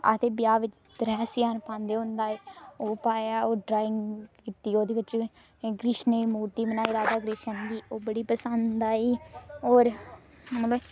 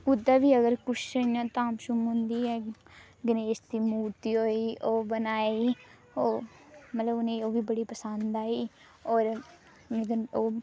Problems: echo